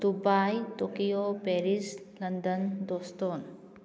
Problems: low volume